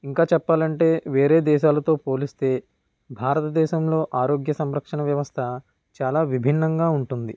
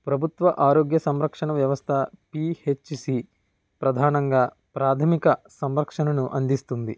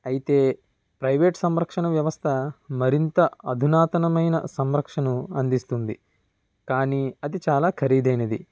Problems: none marked